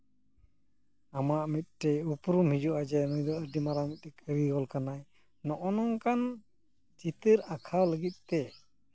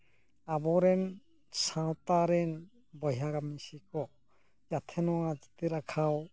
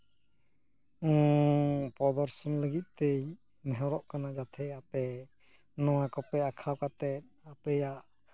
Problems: background sounds at intervals